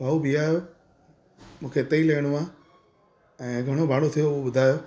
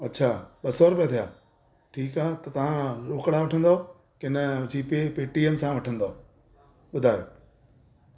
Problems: constant background noise